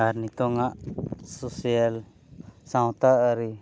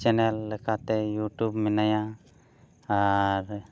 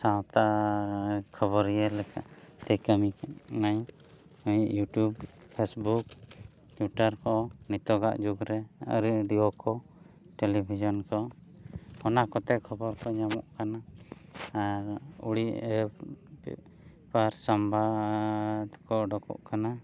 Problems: none marked